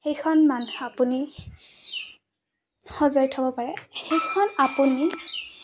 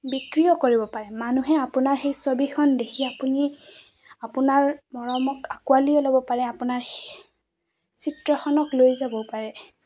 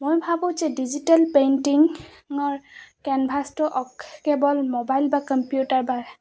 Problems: constant background noise